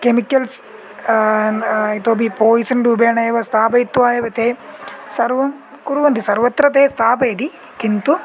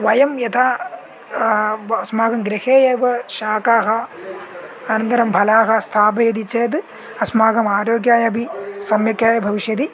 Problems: background sounds at intervals